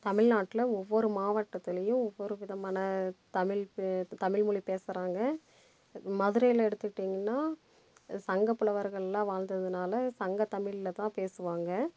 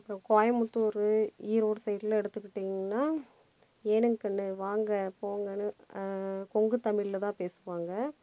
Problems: background sounds at intervals